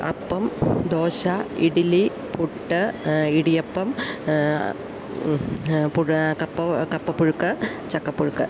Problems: constant background noise